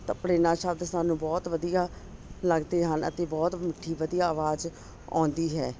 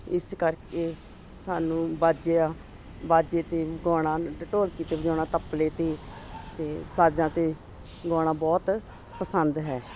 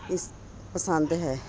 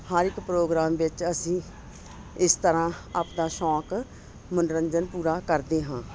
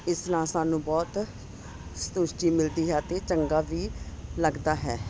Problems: none marked